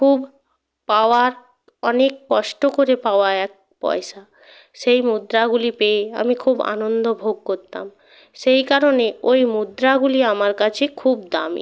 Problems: background sounds at intervals, background conversations at intervals